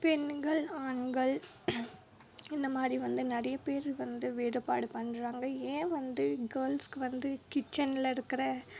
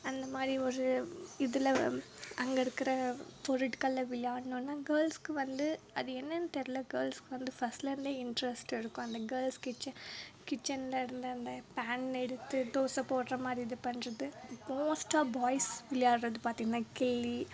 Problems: low volume